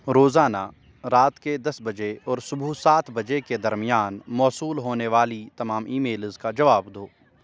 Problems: constant background noise